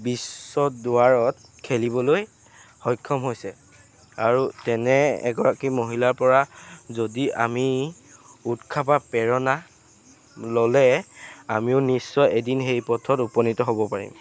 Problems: constant background noise